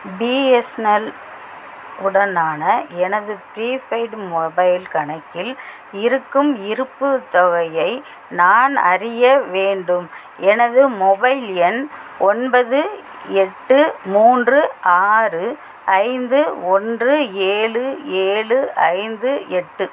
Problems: constant background noise